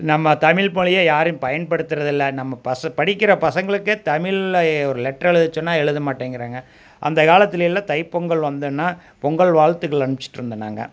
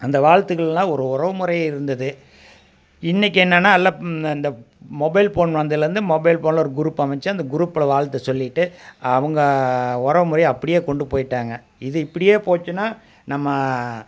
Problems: none marked